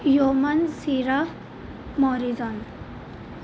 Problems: constant background noise